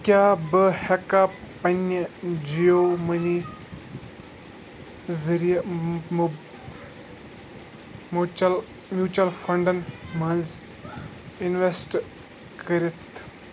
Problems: constant background noise